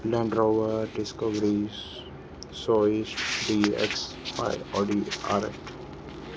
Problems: constant background noise, low volume